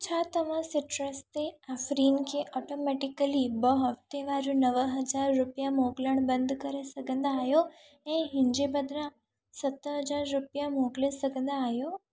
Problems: echo